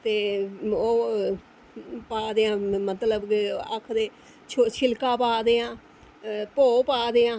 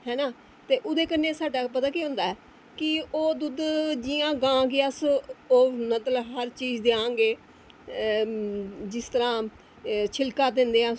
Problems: constant background noise